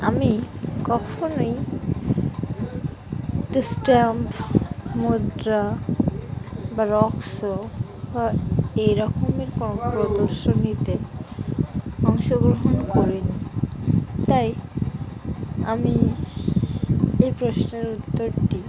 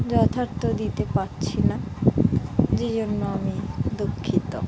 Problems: background sounds at intervals, background conversations at intervals